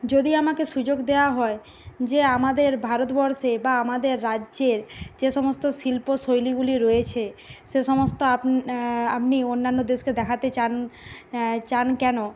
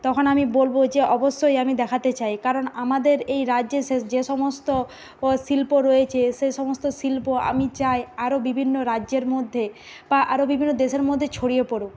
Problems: constant background noise